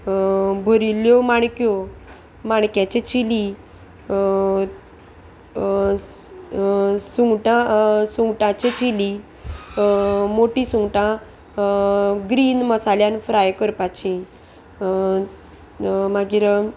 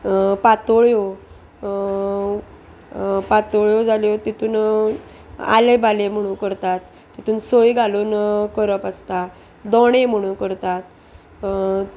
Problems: constant background noise